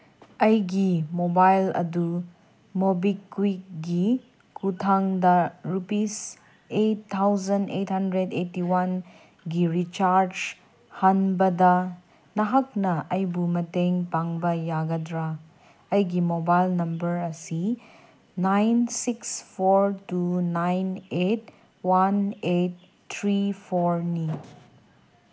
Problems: none marked